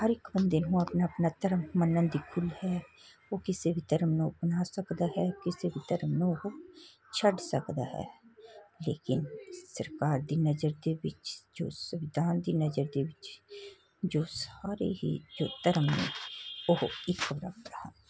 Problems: constant background noise